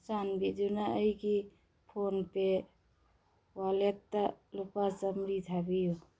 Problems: none marked